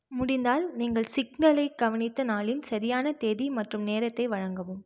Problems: constant background noise